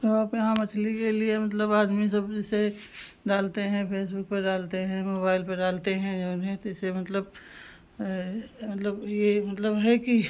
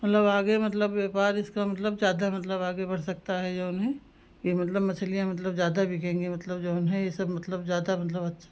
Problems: background sounds at intervals